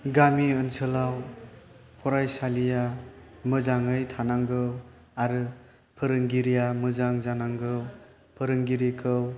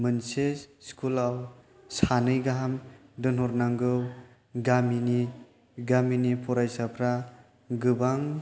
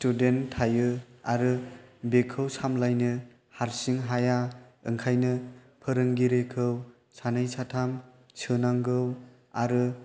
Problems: none marked